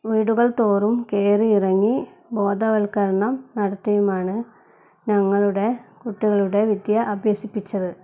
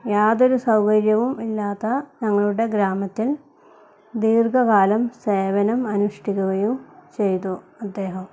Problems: none marked